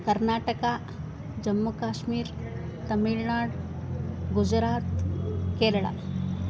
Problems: constant background noise